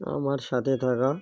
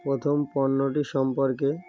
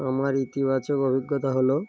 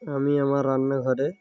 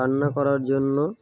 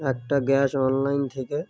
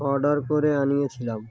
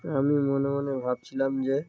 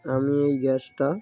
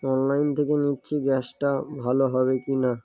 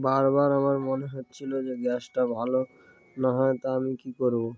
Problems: background sounds at intervals